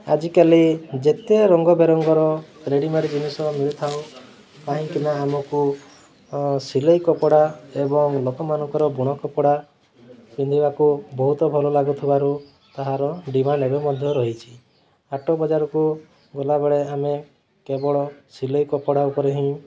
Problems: constant background noise, continuous background conversations